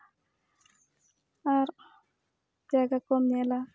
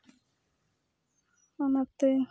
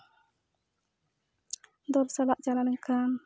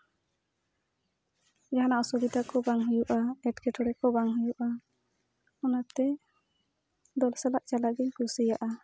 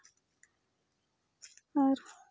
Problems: background sounds at intervals